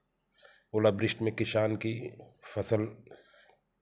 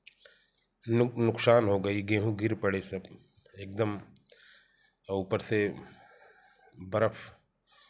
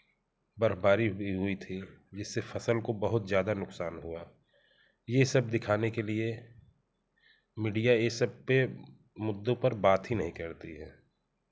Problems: none marked